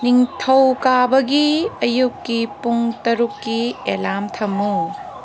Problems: constant background noise